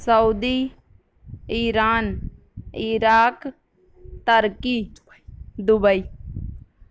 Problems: none marked